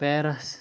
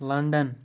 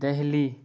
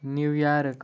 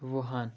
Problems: none marked